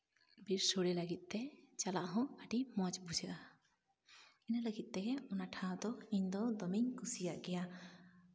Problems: none marked